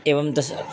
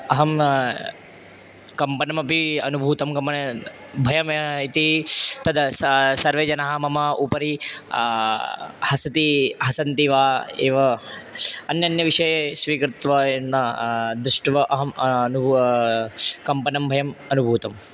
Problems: none marked